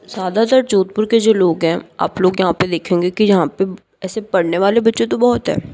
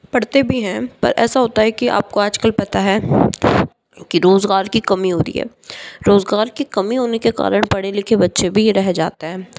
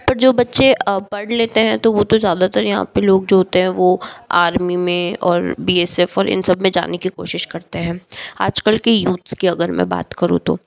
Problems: background sounds at intervals